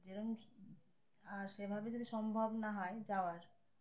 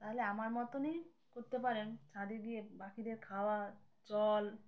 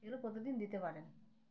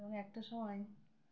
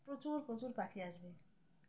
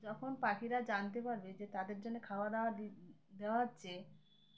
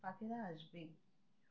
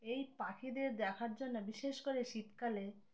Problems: background sounds at intervals